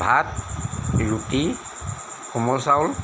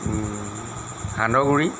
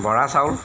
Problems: constant background noise